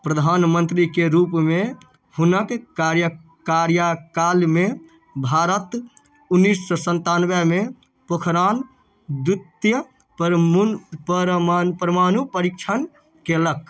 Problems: none marked